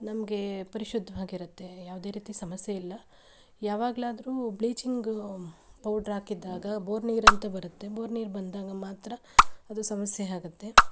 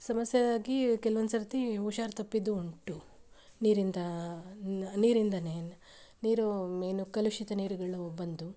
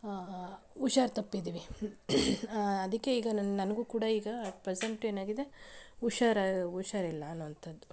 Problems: background sounds at intervals